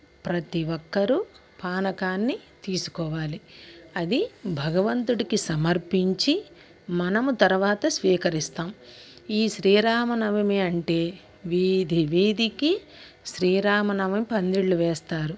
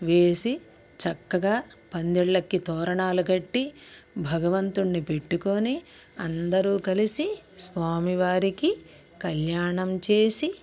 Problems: constant background noise, background conversations at intervals